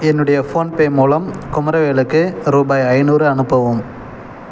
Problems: background sounds at intervals